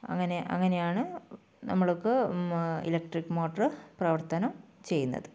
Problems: low volume